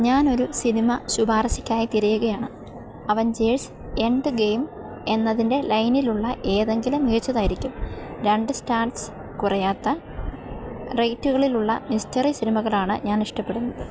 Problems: constant background noise